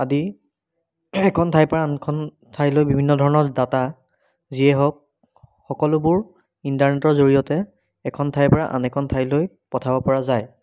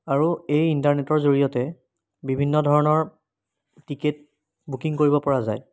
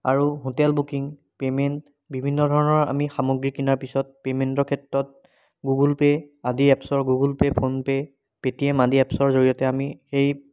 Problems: background sounds at intervals